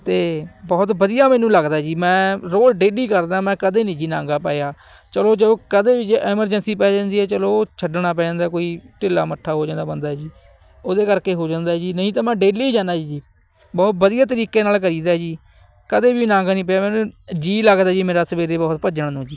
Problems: none marked